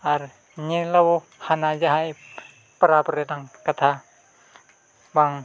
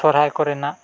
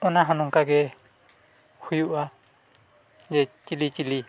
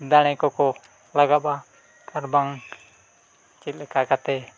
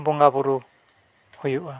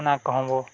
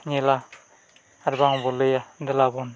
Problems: none marked